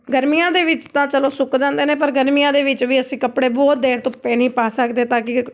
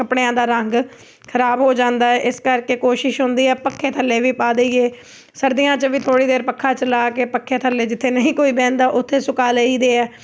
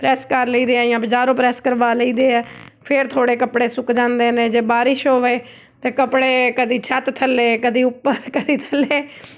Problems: background sounds at intervals